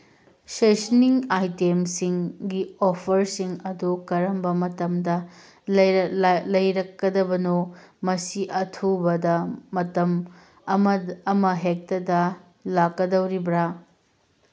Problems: background sounds at intervals